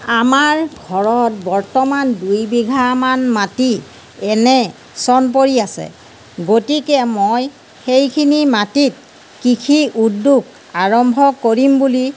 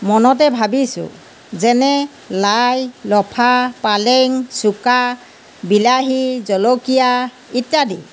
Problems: background sounds at intervals